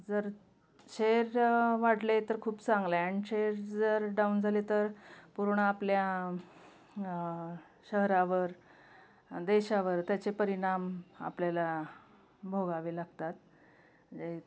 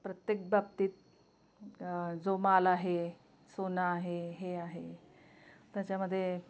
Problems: background sounds at intervals